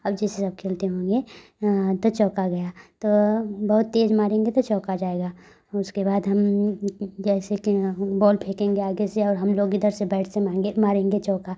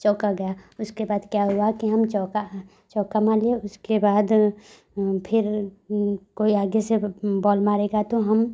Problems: none marked